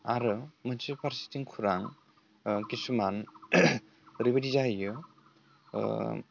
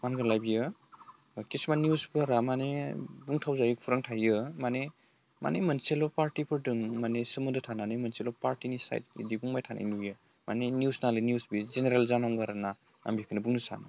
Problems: none marked